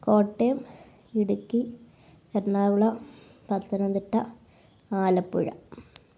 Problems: low volume